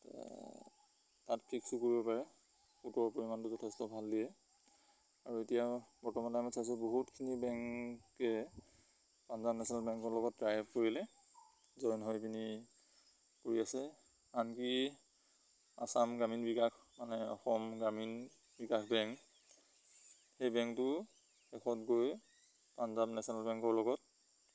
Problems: constant background noise